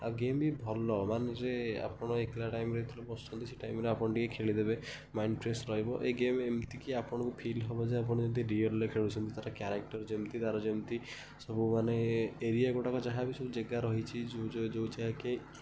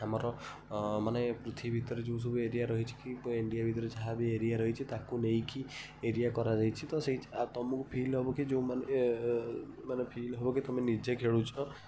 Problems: background sounds at intervals, background conversations at intervals